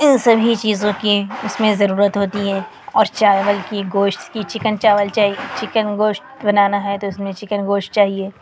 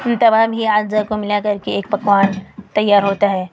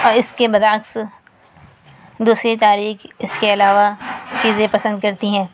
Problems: constant background noise